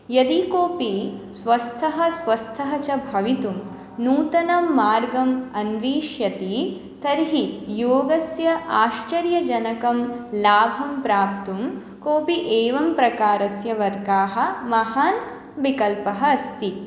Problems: none marked